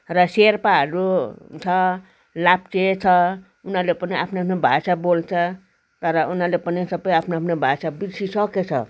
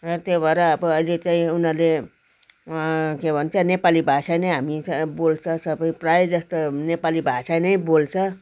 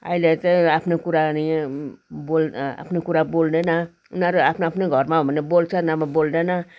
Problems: constant background noise